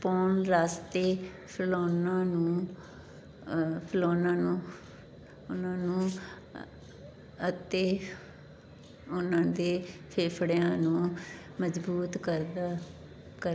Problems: background conversations at intervals